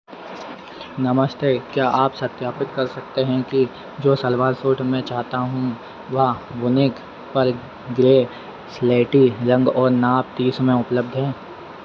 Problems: none marked